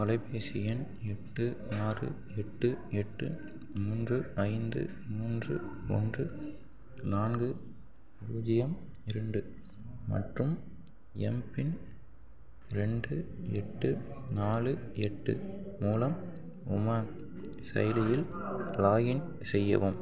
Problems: background conversations at intervals, low volume